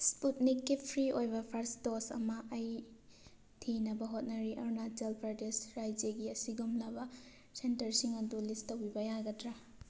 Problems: none marked